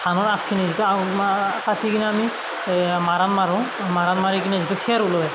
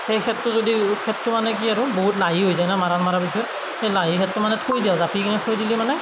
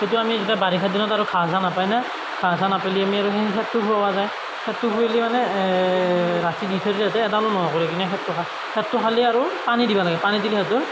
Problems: constant background noise, background conversations at intervals